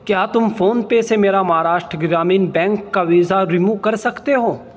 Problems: constant background noise